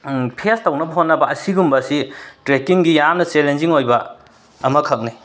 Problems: background sounds at intervals, background conversations at intervals